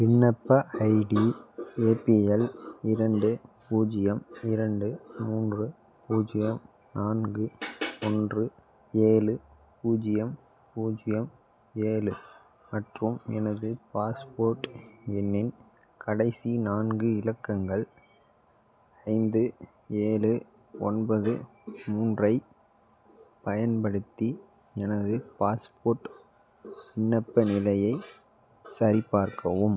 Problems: background sounds at intervals